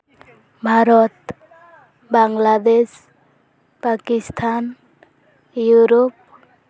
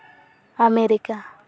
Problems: constant background noise, background conversations at intervals